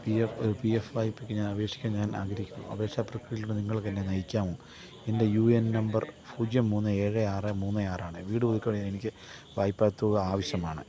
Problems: low volume